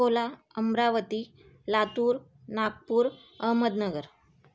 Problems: none marked